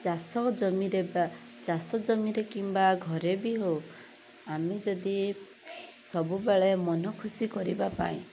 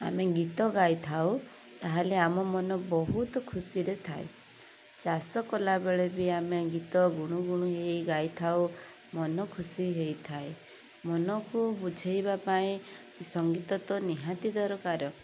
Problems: none marked